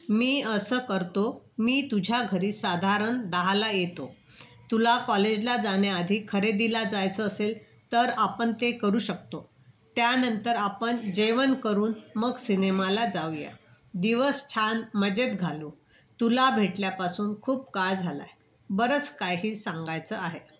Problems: background sounds at intervals